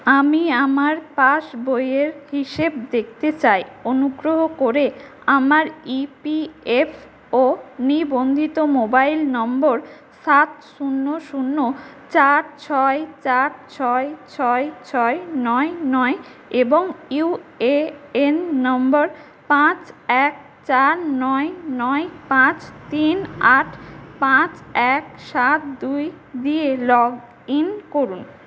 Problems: constant background noise, echo